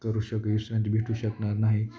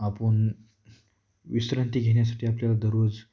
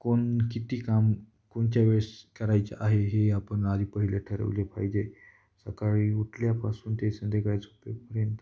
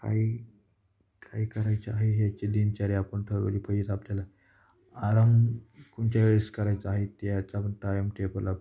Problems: none marked